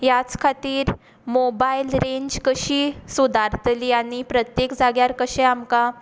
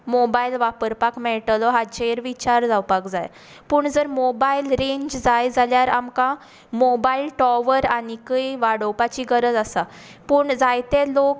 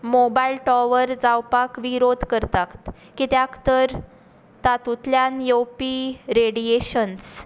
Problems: background sounds at intervals, echo